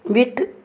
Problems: none marked